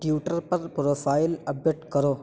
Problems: constant background noise